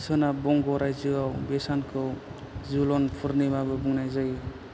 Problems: constant background noise